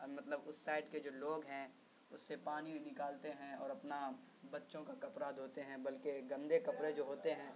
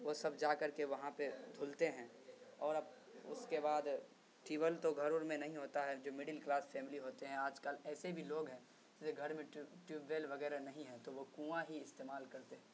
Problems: constant background noise, low volume